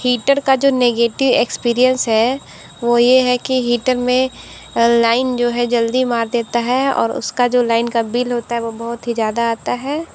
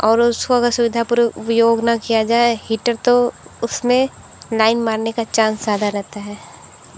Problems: constant background noise